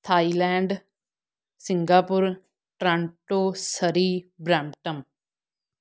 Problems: none marked